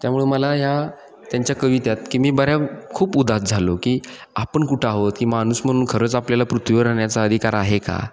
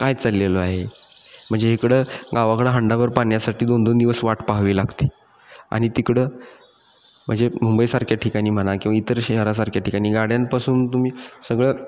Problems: none marked